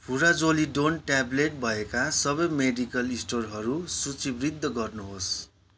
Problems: background sounds at intervals